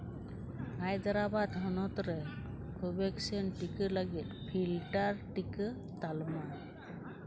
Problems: none marked